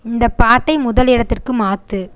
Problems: constant background noise